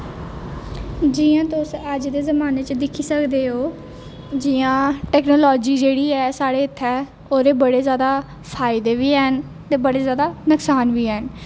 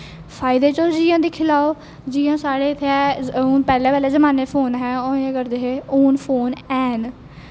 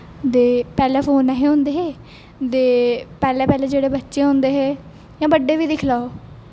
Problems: none marked